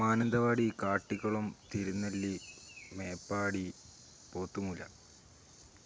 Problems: low volume